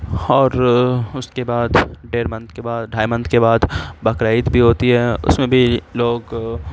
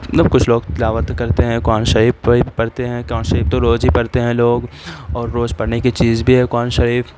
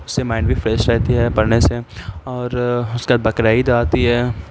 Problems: constant background noise